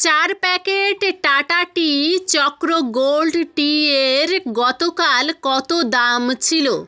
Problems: background sounds at intervals, background conversations at intervals